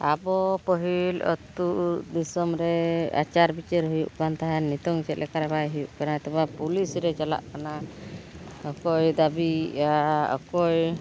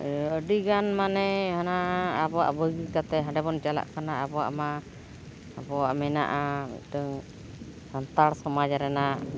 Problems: none marked